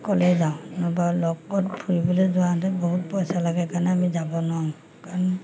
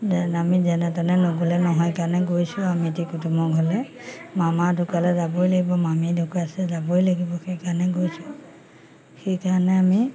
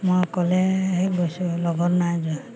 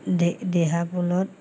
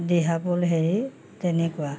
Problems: constant background noise